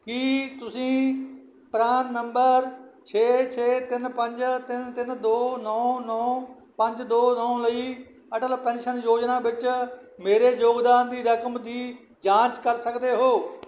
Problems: none marked